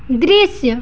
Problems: none marked